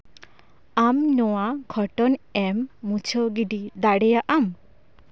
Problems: background sounds at intervals